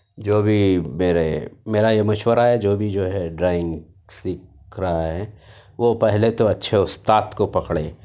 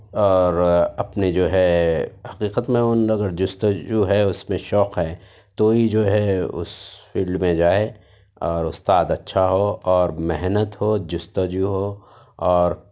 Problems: none marked